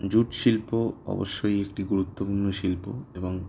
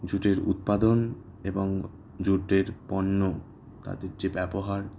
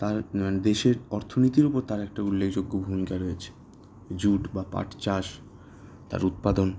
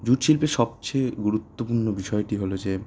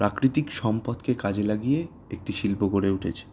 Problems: background sounds at intervals